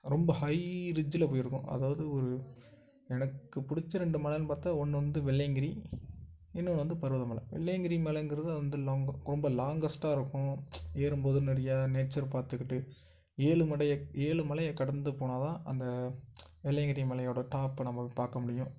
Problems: none marked